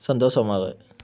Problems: none marked